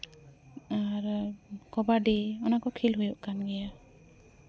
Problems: constant background noise, background conversations at intervals